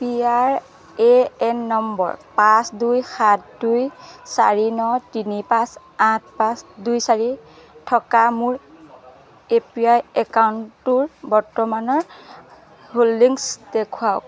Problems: none marked